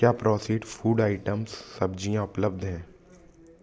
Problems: background sounds at intervals